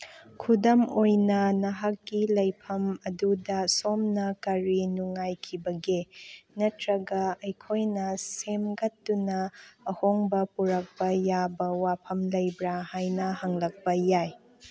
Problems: none marked